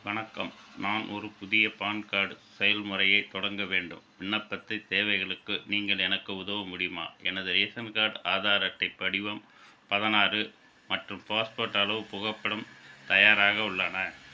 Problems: constant background noise